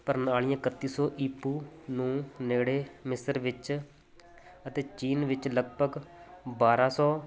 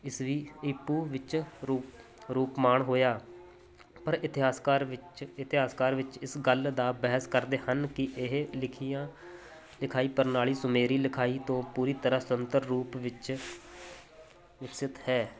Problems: none marked